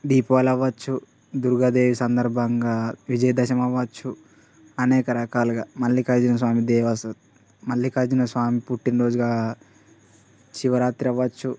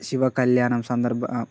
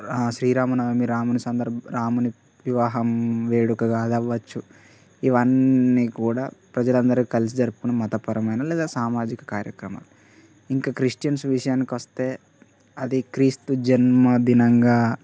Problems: none marked